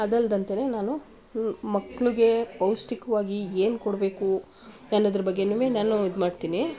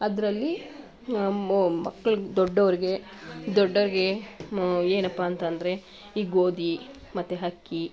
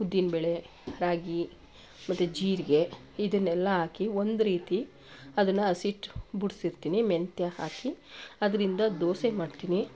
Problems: background sounds at intervals